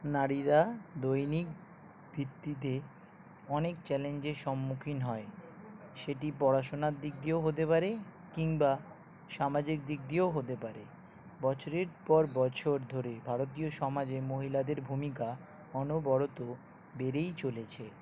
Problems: background sounds at intervals, background conversations at intervals